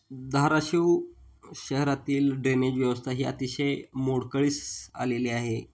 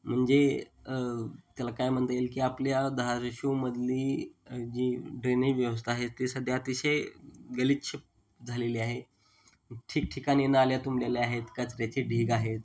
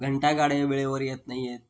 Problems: none marked